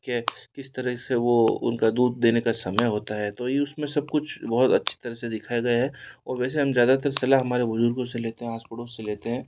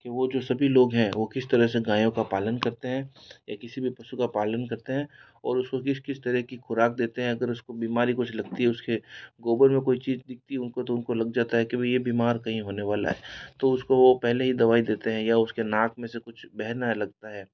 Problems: none marked